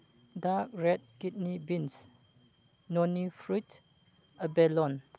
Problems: background sounds at intervals